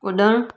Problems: none marked